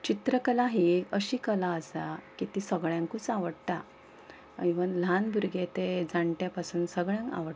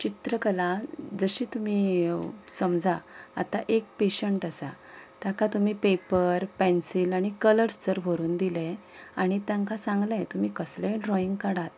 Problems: background sounds at intervals